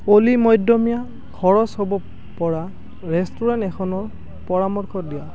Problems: constant background noise